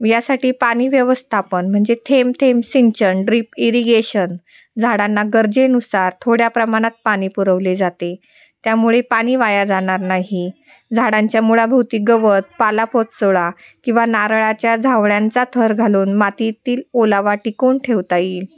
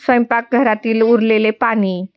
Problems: none marked